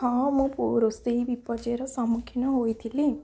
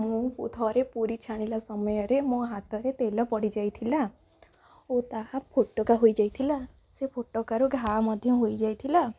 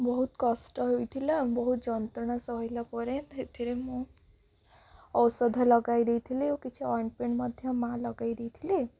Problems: low volume